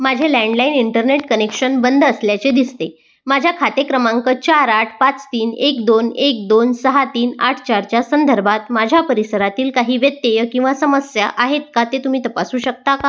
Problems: background sounds at intervals